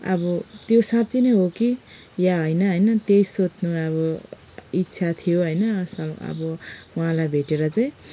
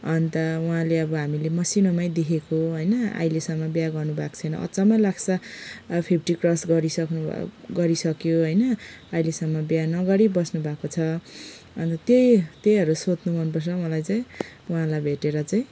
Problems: background sounds at intervals